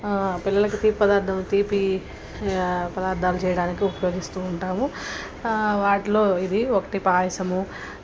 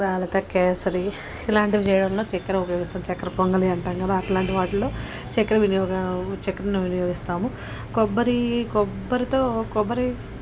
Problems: constant background noise, background conversations at intervals